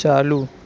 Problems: none marked